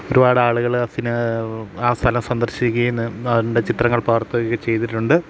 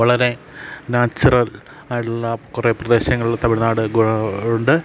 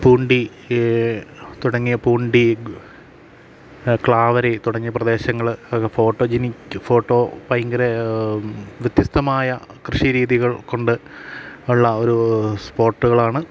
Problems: constant background noise